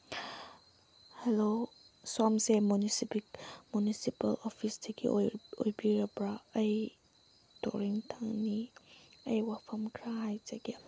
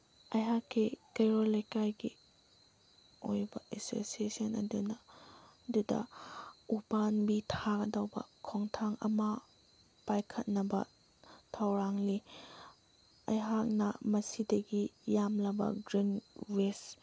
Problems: background sounds at intervals